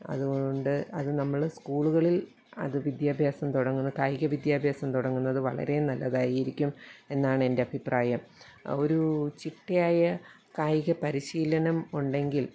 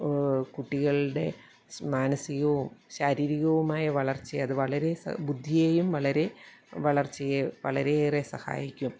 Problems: none marked